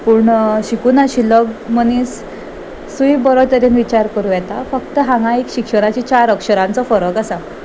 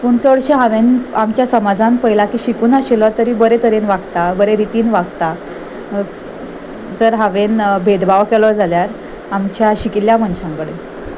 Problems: constant background noise